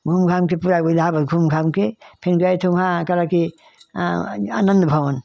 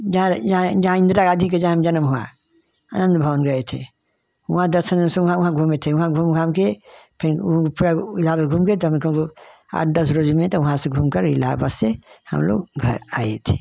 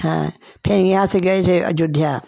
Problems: none marked